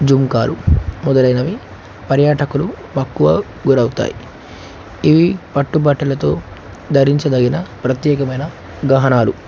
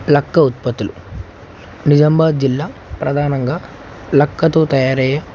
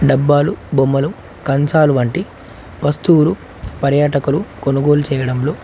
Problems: constant background noise